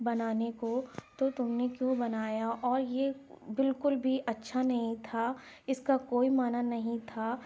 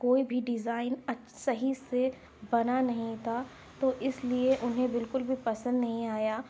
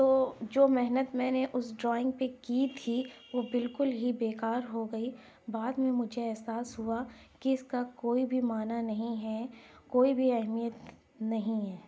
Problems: none marked